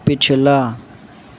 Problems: constant background noise